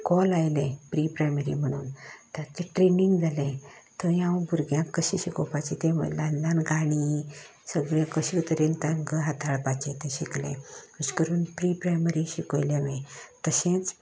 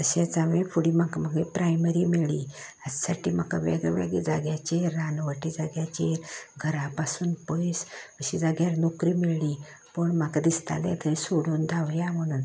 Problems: constant background noise